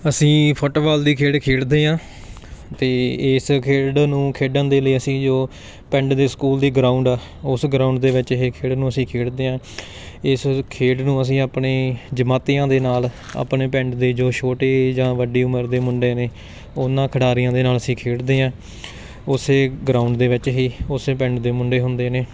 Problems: background sounds at intervals, background conversations at intervals